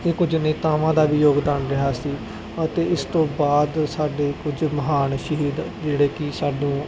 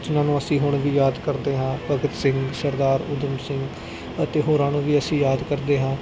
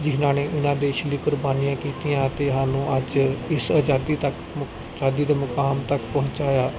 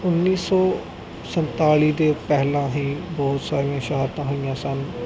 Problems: constant background noise